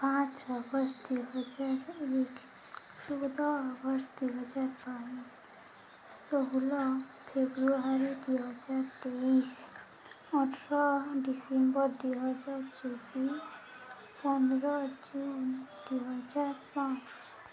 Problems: constant background noise